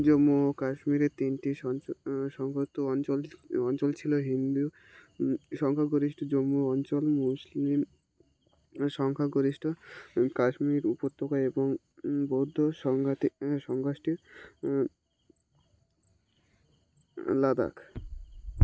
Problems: none marked